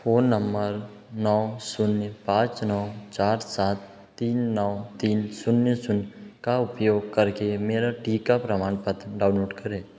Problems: echo